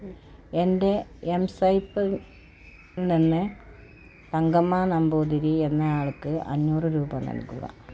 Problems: none marked